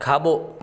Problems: constant background noise, echo